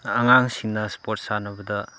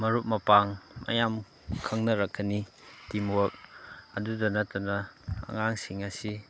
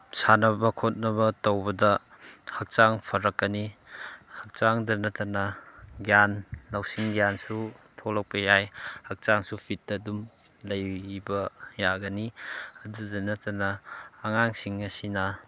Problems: background sounds at intervals